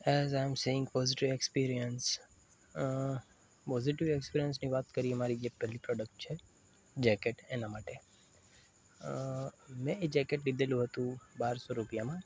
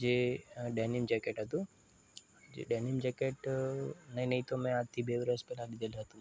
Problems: constant background noise